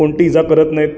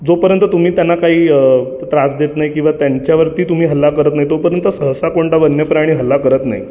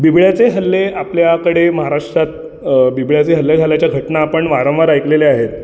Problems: constant background noise